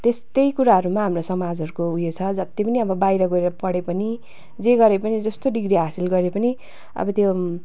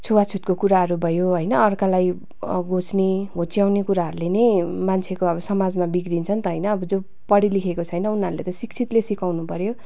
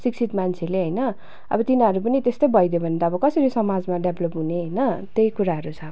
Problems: constant background noise